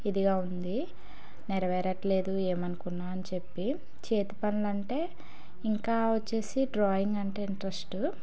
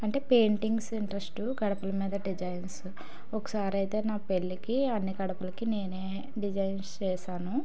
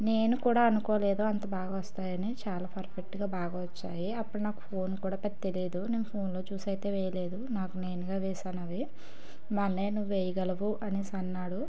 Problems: background sounds at intervals